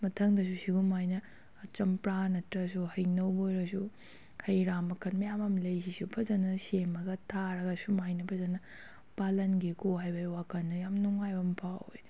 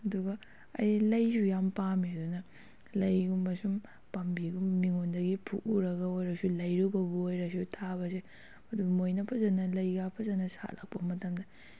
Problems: none marked